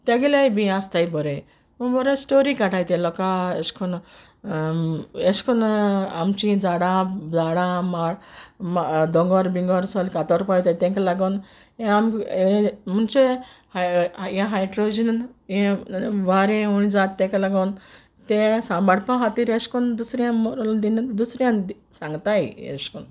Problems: background sounds at intervals